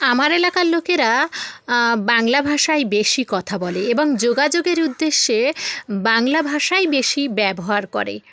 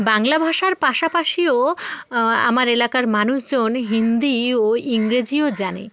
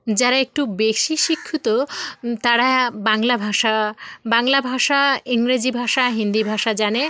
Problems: none marked